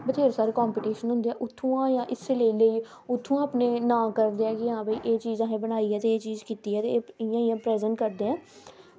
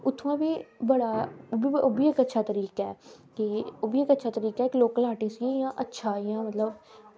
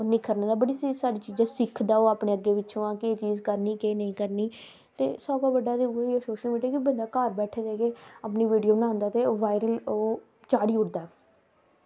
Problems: constant background noise